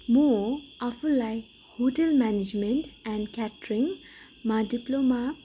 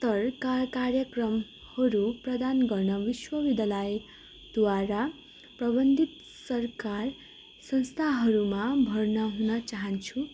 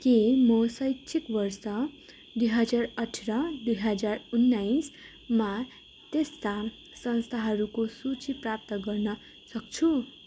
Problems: constant background noise